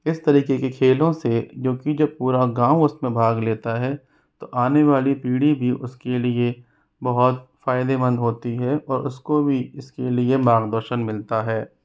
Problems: constant background noise